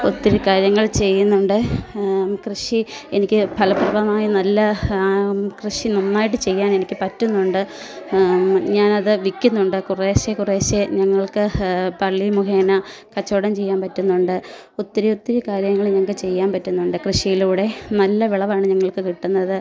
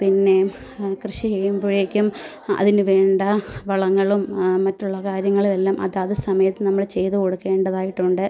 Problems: background conversations at intervals